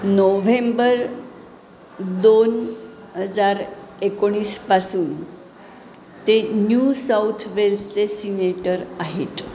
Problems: none marked